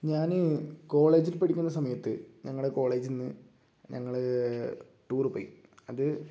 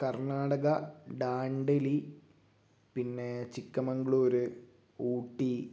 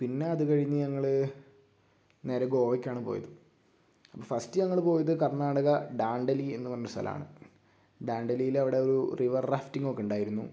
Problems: low volume